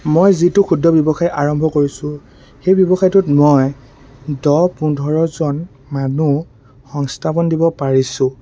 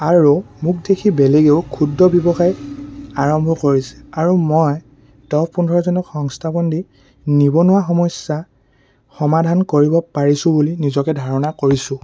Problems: constant background noise